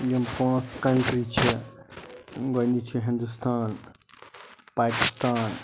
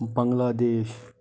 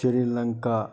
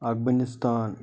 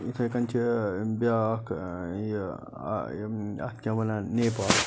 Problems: constant background noise